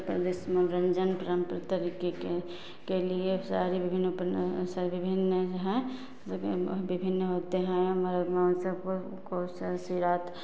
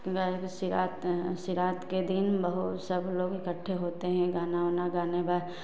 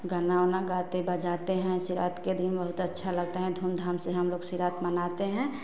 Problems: none marked